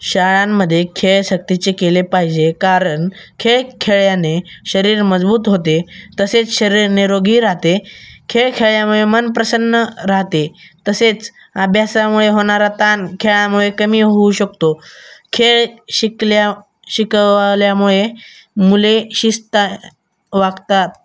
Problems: none marked